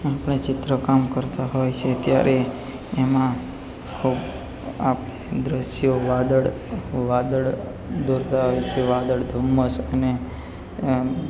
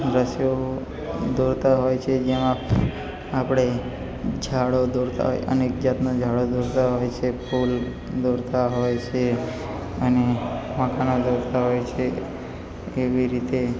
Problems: none marked